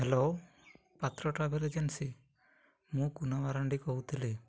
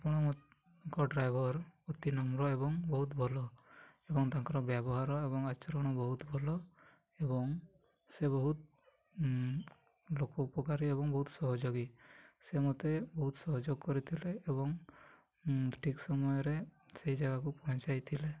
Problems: low volume